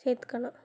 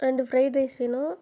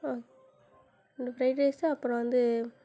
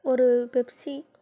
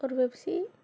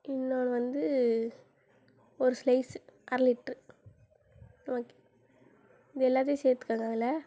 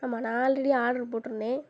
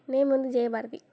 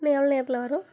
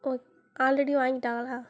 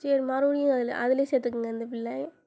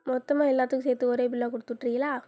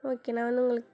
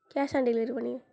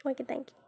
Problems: none marked